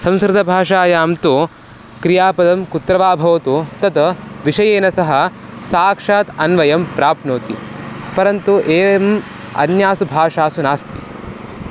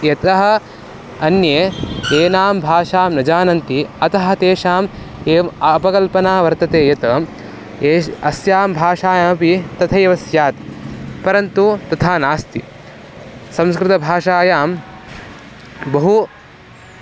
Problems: constant background noise